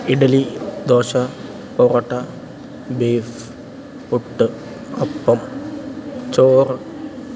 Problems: constant background noise, low volume